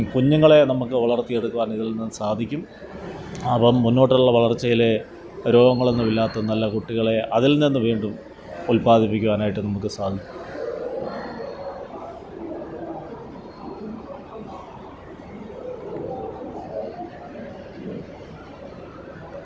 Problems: background sounds at intervals